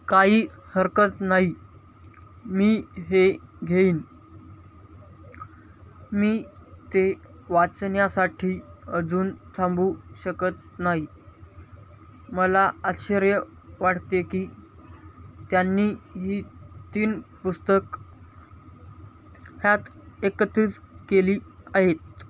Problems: constant background noise, background conversations at intervals